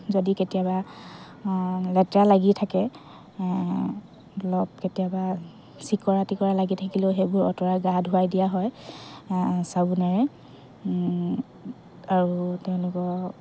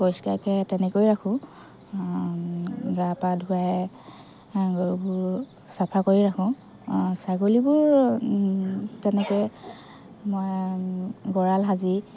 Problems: constant background noise, background conversations at intervals